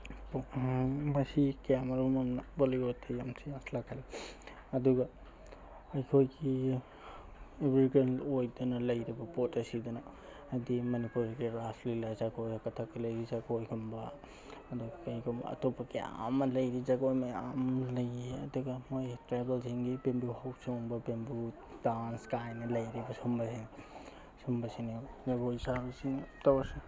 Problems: none marked